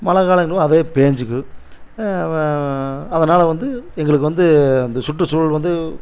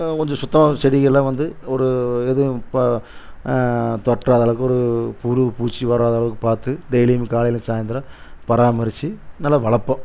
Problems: constant background noise